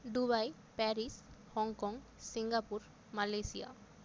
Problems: constant background noise